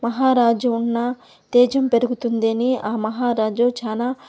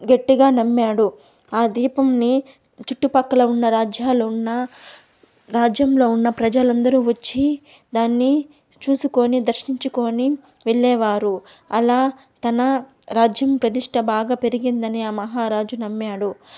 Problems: background sounds at intervals